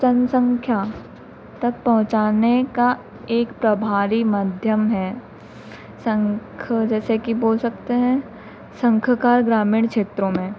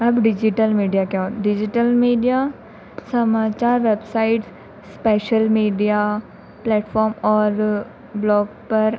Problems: constant background noise